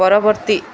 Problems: constant background noise